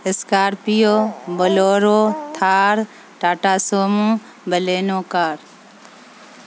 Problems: constant background noise